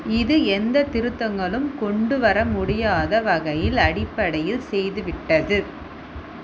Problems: constant background noise